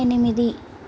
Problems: constant background noise